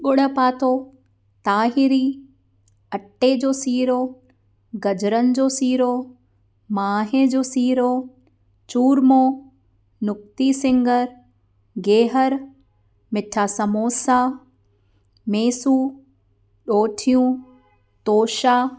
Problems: none marked